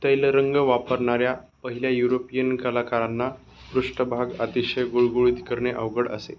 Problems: background sounds at intervals